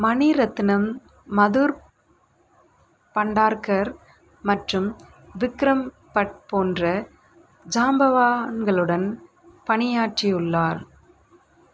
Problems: none marked